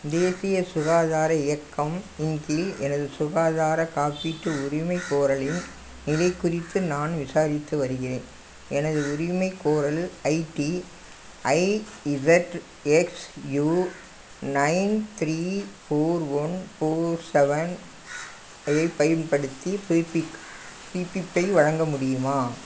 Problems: constant background noise